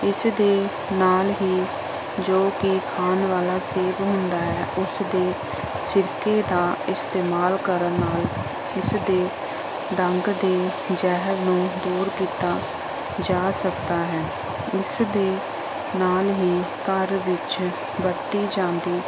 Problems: constant background noise